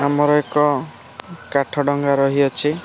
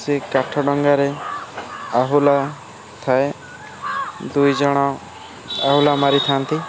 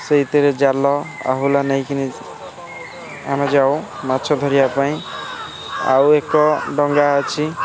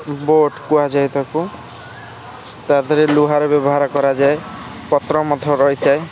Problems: constant background noise, continuous background conversations